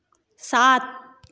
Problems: echo